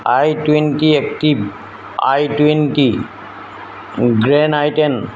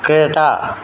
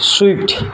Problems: constant background noise